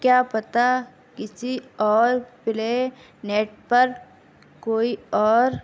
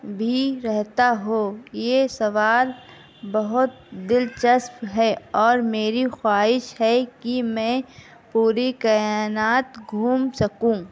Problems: constant background noise, background conversations at intervals